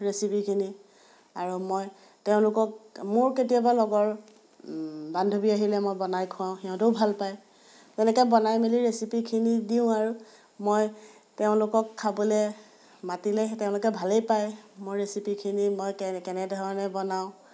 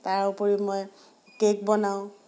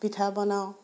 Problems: background sounds at intervals